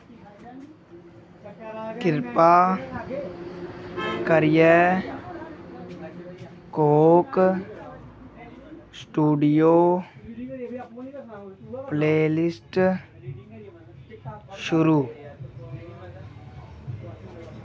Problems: none marked